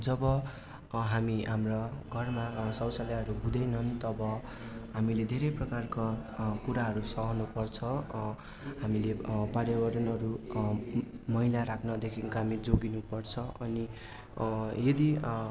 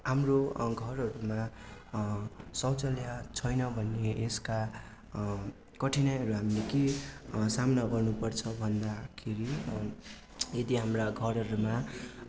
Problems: none marked